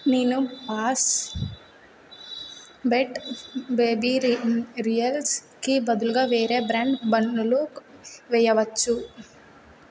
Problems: background sounds at intervals